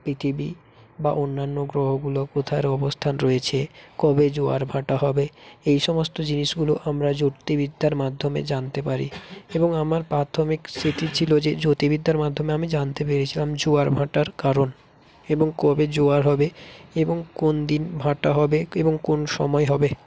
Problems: constant background noise